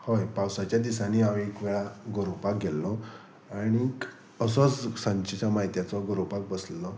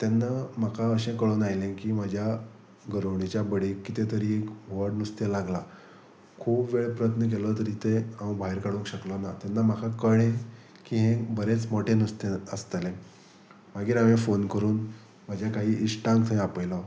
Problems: none marked